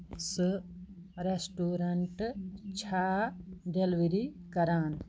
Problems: background sounds at intervals